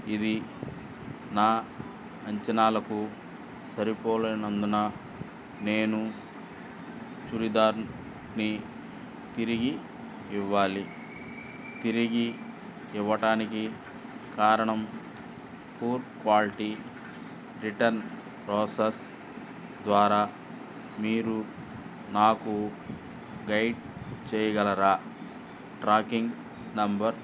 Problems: constant background noise